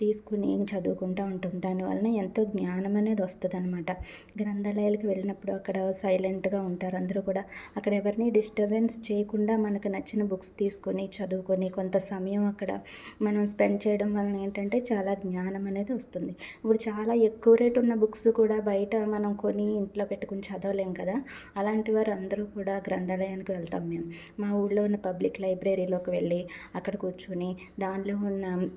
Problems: background sounds at intervals